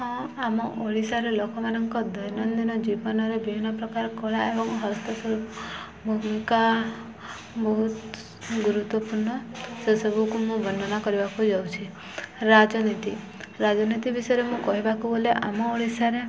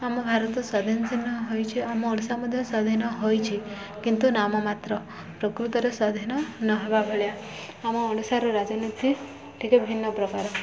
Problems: none marked